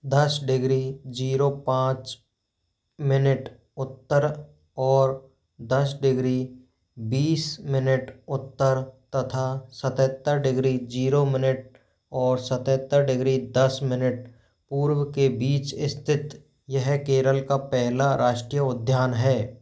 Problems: constant background noise